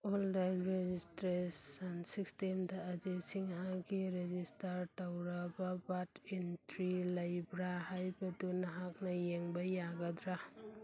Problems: background conversations at intervals